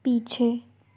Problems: background sounds at intervals